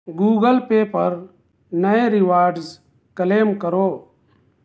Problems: none marked